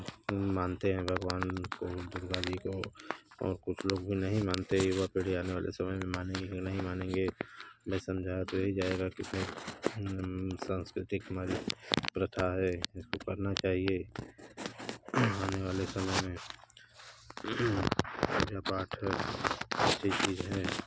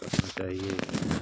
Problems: constant background noise